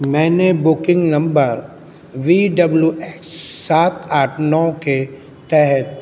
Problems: constant background noise